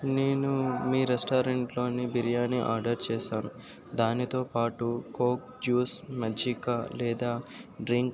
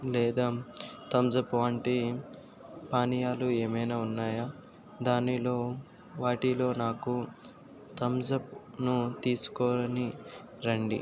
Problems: constant background noise